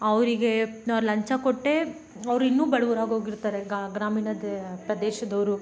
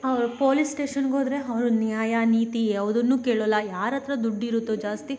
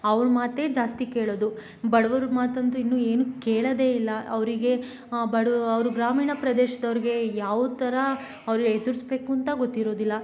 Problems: none marked